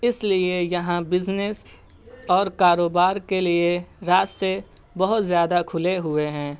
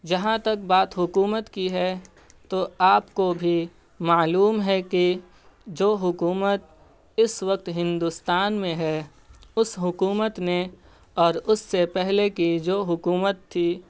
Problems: none marked